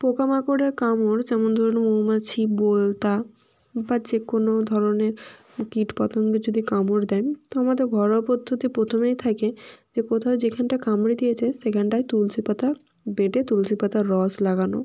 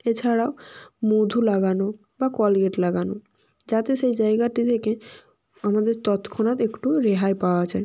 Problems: background sounds at intervals